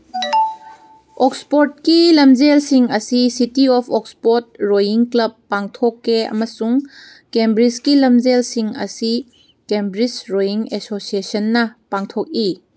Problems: none marked